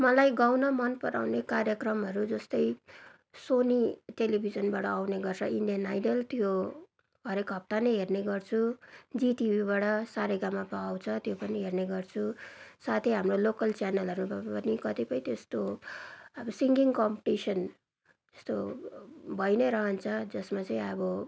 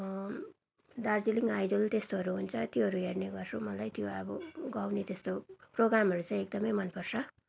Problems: background sounds at intervals